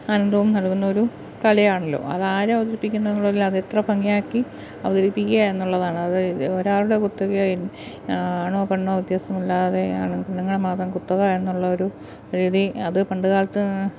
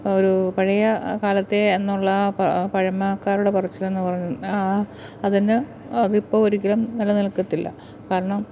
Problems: background sounds at intervals